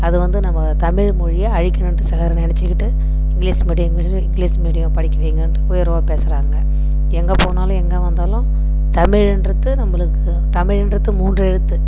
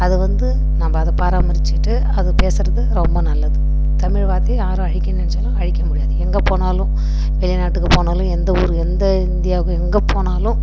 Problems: constant background noise